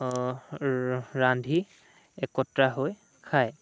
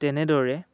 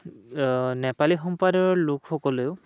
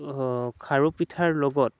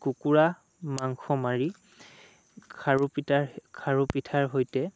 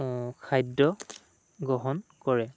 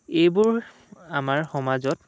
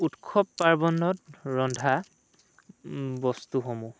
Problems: none marked